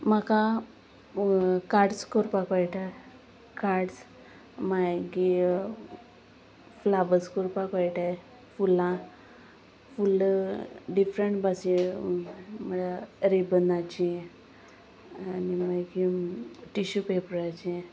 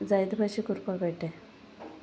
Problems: none marked